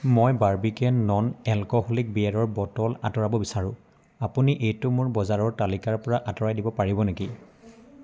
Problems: constant background noise, background conversations at intervals